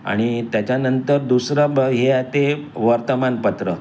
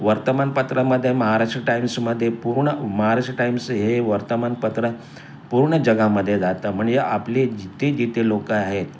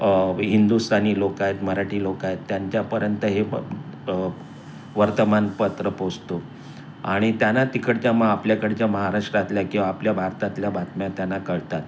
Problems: constant background noise